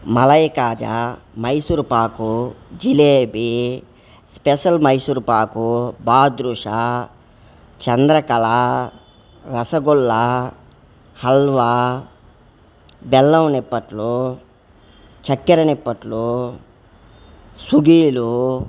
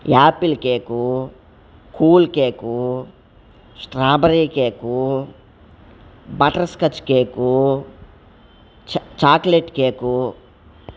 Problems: constant background noise